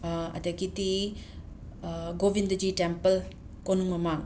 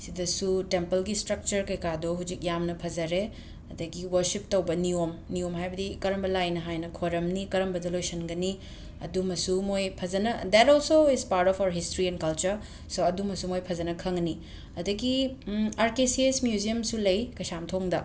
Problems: background sounds at intervals